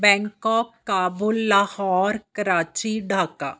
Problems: none marked